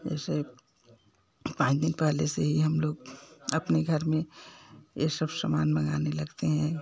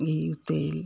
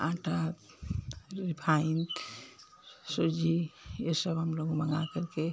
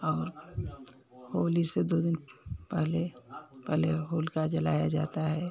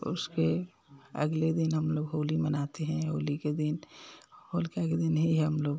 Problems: none marked